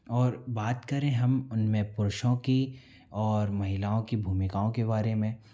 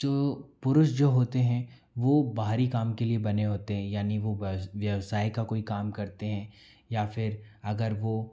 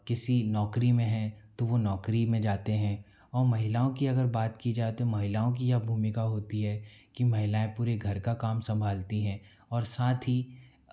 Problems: none marked